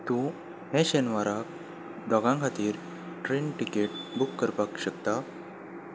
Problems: background sounds at intervals